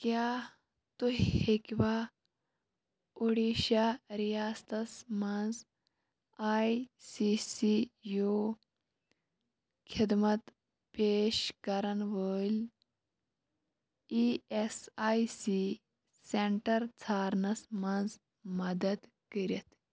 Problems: none marked